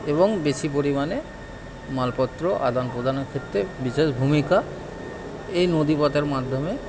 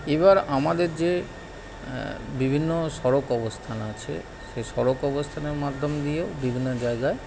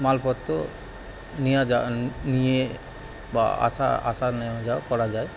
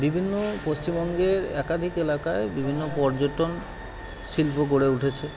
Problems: constant background noise